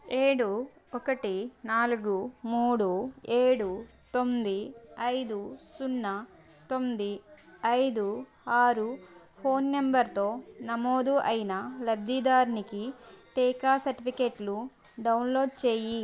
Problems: background sounds at intervals, continuous background conversations